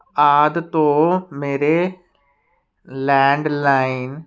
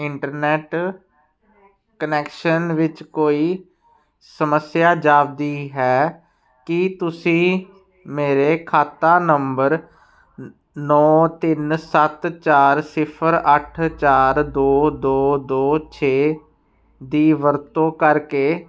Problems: background sounds at intervals